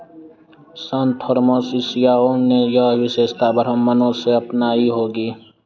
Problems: constant background noise